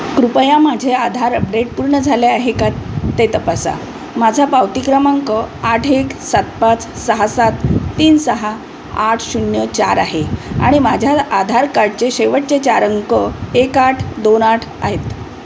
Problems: constant background noise